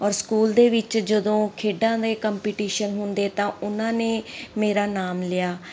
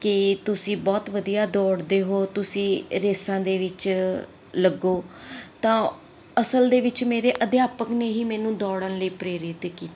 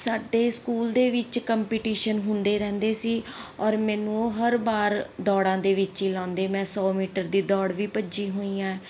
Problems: none marked